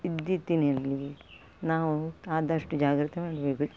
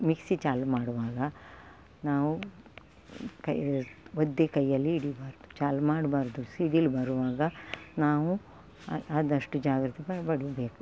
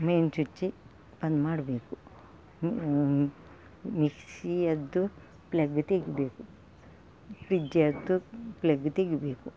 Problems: background sounds at intervals